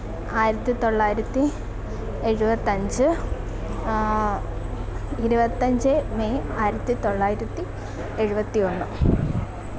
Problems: constant background noise